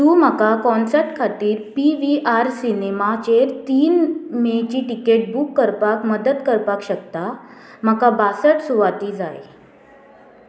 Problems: constant background noise